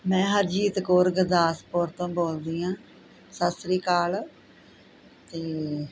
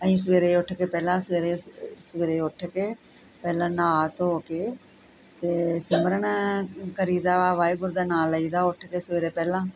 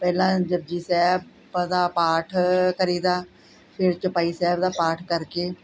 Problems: none marked